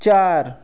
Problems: background sounds at intervals